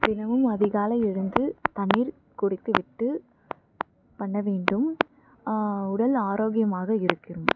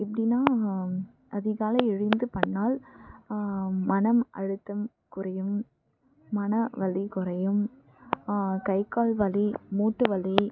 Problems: background sounds at intervals, low volume